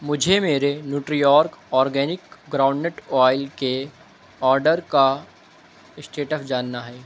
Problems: none marked